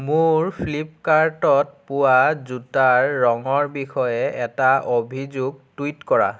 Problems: none marked